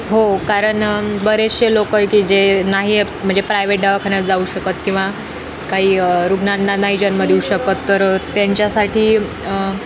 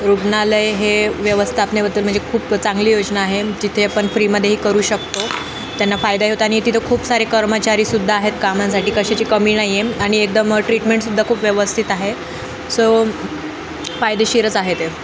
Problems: constant background noise, continuous background conversations